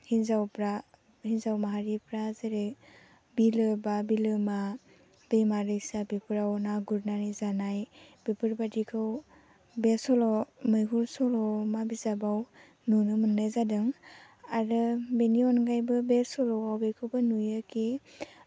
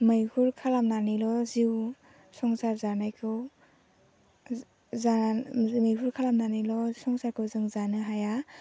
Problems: low volume